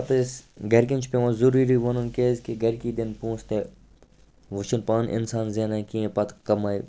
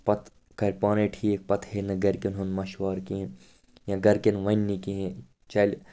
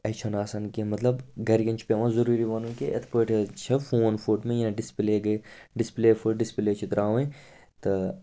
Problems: none marked